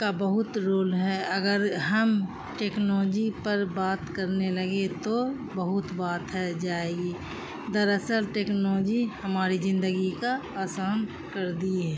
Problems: constant background noise